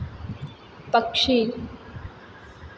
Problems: constant background noise, echo